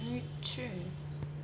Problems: constant background noise, low volume